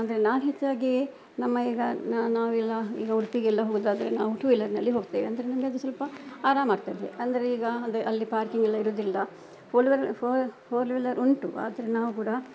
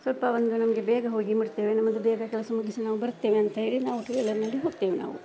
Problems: background sounds at intervals